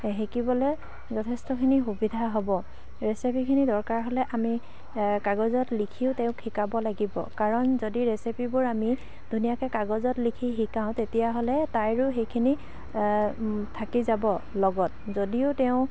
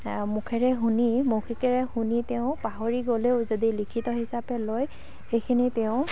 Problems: constant background noise, background conversations at intervals, low volume